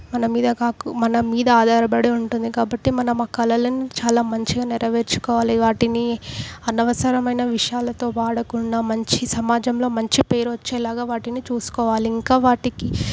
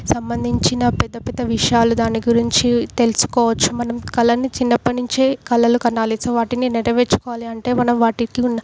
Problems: background sounds at intervals